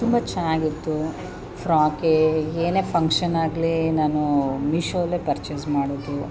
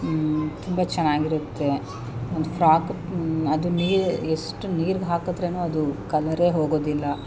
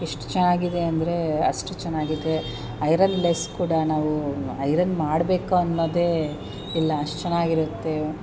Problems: none marked